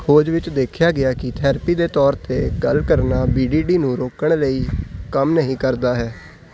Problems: none marked